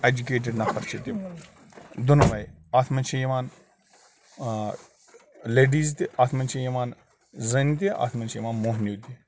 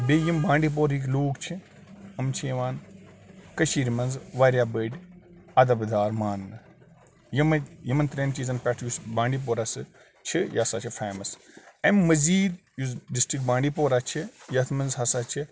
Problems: none marked